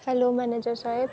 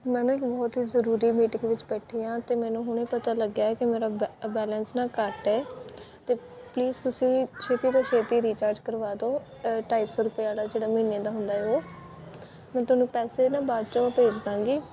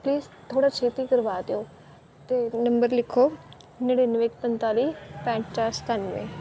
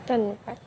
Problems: constant background noise